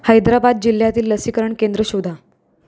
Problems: none marked